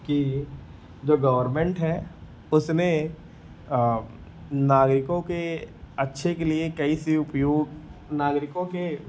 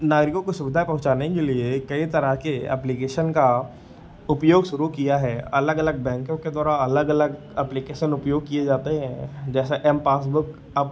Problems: none marked